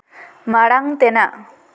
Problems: none marked